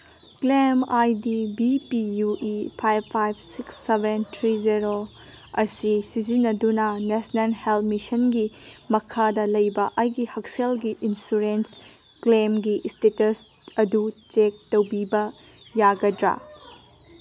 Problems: background sounds at intervals